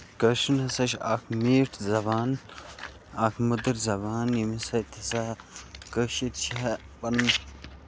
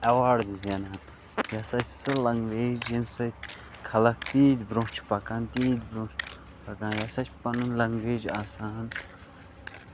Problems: constant background noise